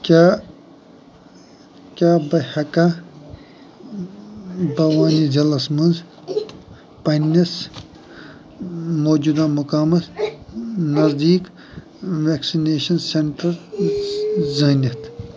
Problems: background sounds at intervals